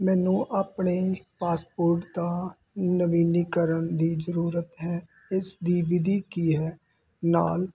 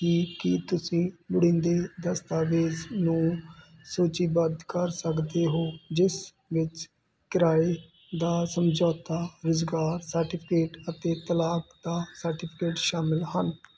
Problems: constant background noise